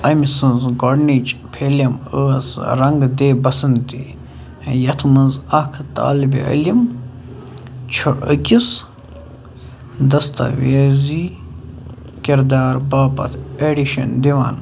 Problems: none marked